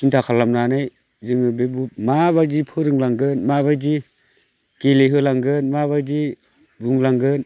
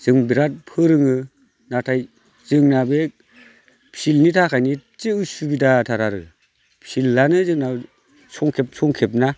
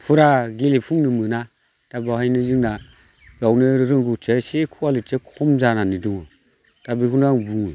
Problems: none marked